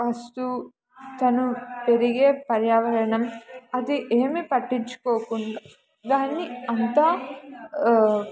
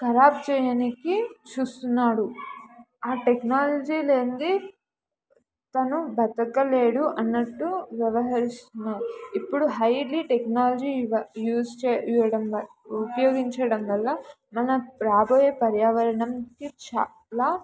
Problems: background sounds at intervals, background conversations at intervals